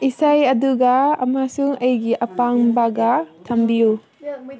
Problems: background conversations at intervals